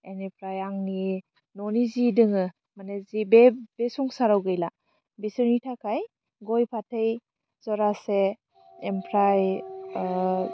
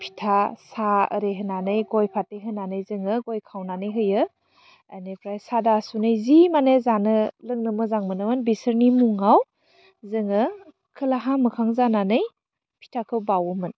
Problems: none marked